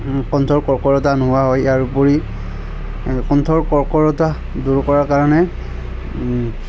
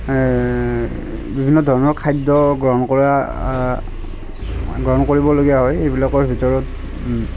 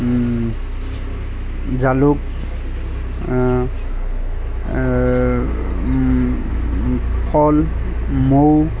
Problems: constant background noise, continuous background conversations